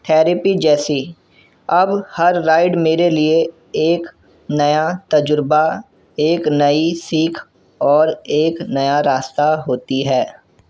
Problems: none marked